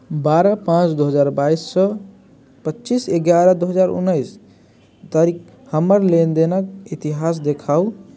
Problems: none marked